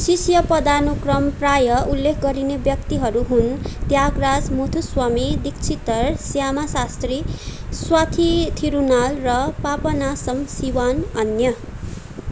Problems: constant background noise